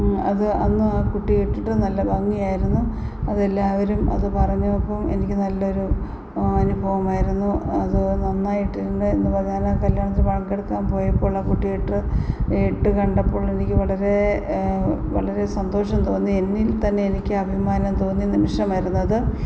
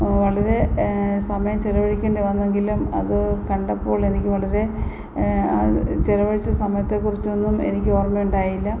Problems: constant background noise